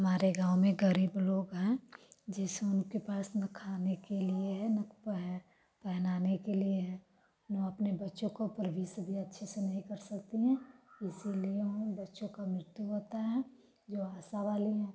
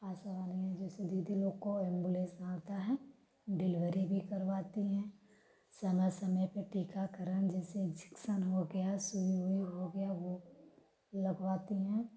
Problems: background sounds at intervals, background conversations at intervals